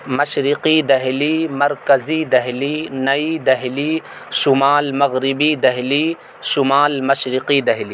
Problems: constant background noise